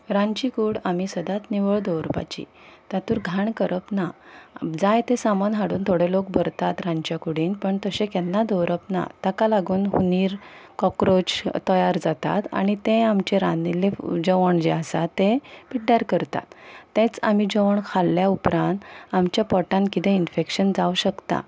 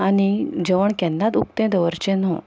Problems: background conversations at intervals